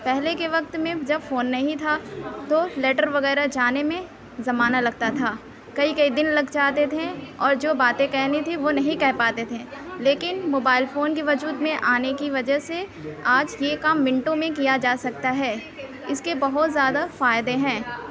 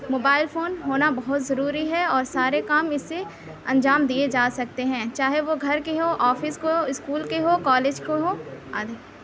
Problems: constant background noise